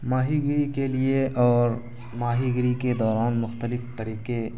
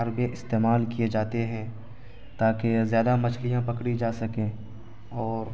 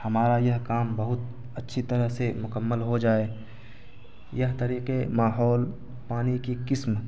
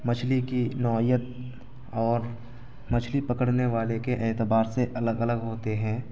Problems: constant background noise